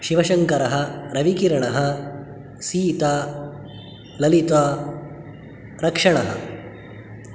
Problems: none marked